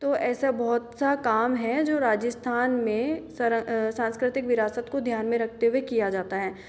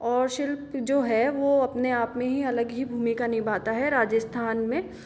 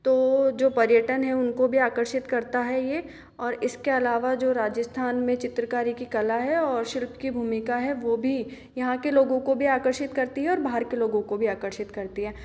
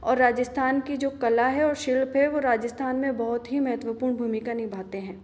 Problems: background sounds at intervals